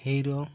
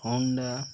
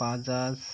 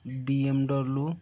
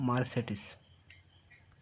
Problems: constant background noise